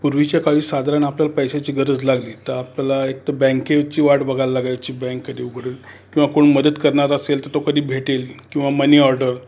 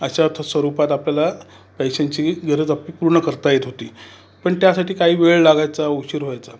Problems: none marked